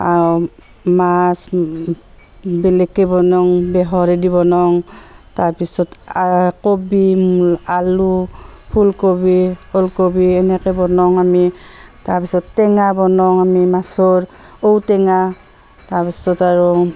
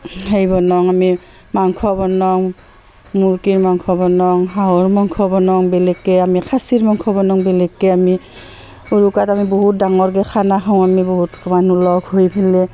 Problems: constant background noise, continuous background conversations